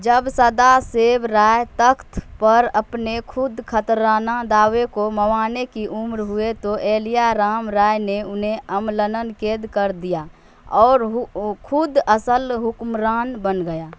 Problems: constant background noise